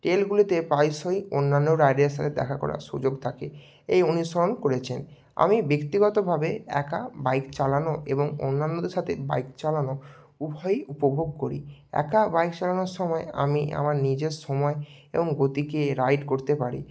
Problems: none marked